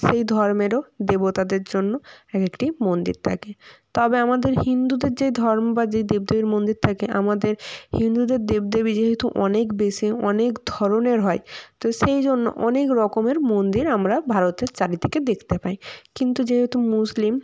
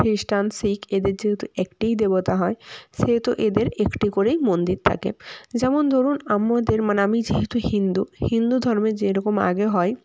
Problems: background sounds at intervals